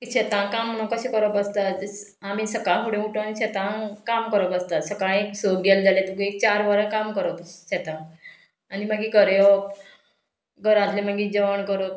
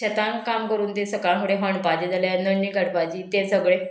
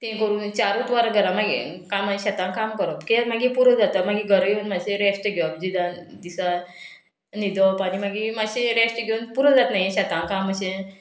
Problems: none marked